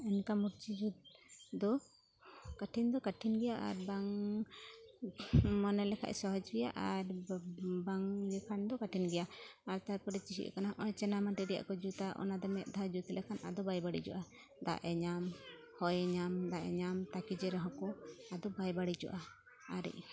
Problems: constant background noise, continuous background conversations